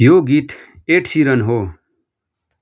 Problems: none marked